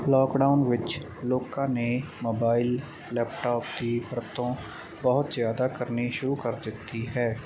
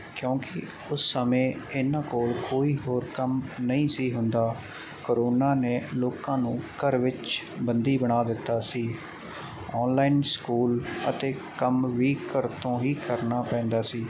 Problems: constant background noise